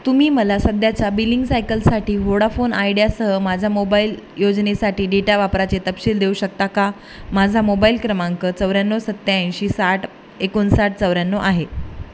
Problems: none marked